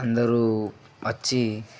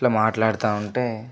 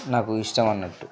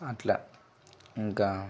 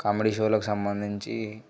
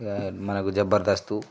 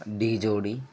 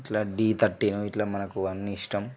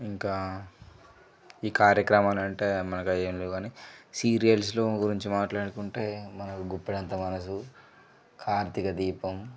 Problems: low volume